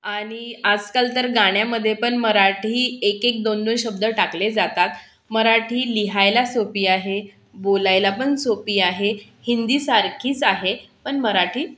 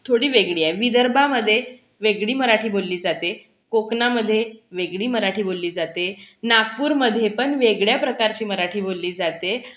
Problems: constant background noise